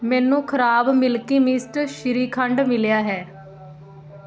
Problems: continuous background conversations